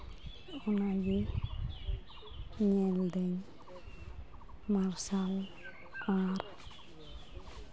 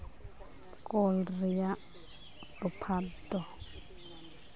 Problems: constant background noise, continuous background conversations